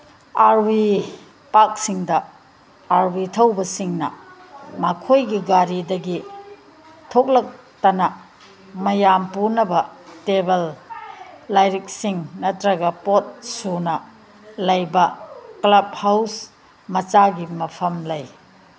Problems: background sounds at intervals